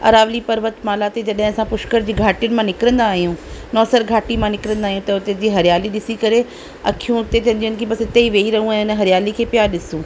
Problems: constant background noise